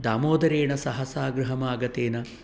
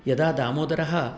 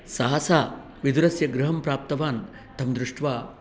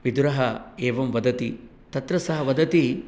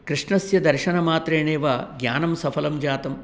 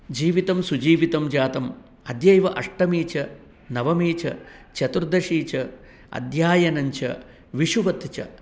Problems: none marked